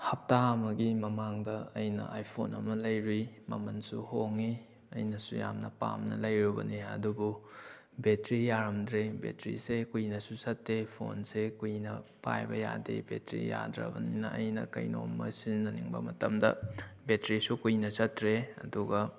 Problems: background sounds at intervals